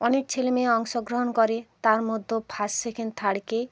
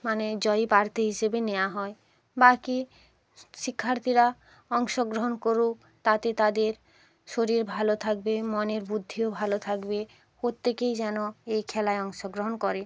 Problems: none marked